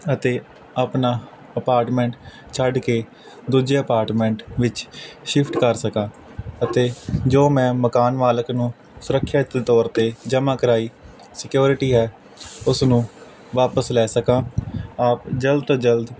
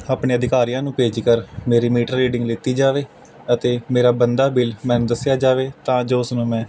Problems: constant background noise